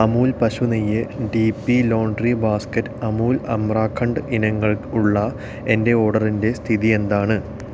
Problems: constant background noise